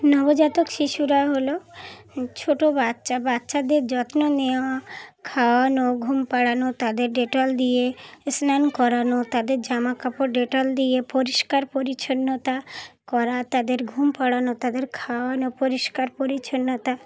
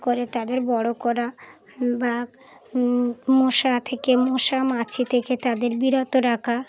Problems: continuous background conversations